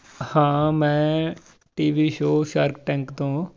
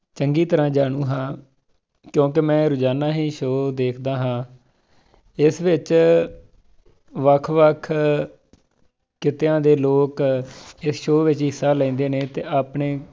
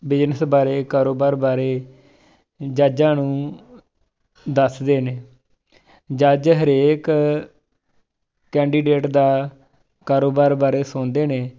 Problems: background conversations at intervals